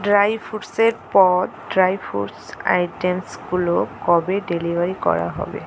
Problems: constant background noise